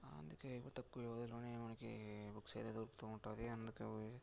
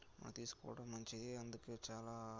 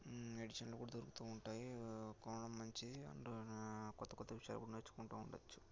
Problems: low volume